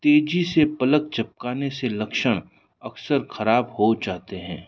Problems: none marked